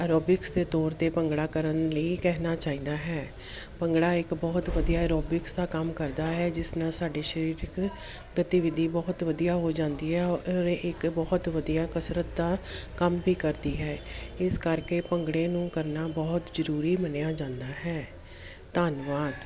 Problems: background sounds at intervals